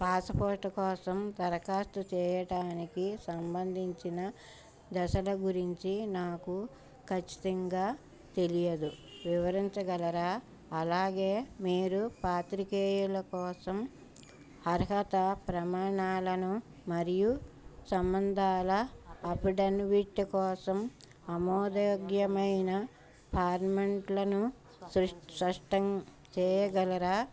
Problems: background sounds at intervals, background conversations at intervals